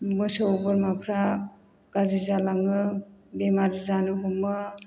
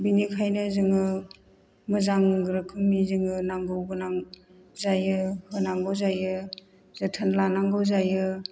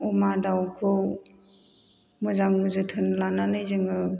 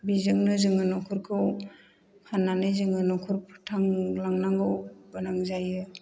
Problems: none marked